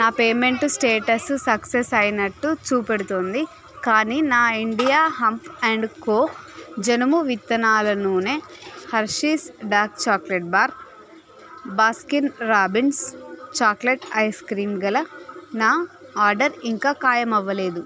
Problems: background sounds at intervals, continuous background conversations